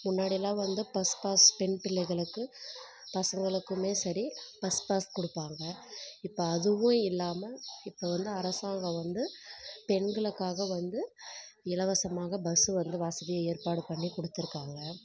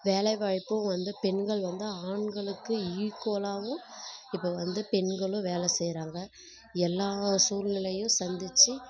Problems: background sounds at intervals